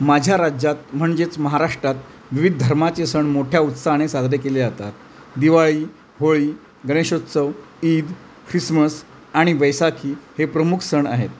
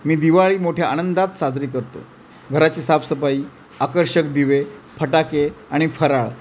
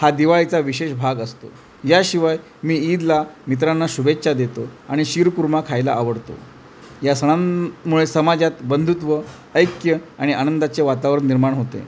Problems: none marked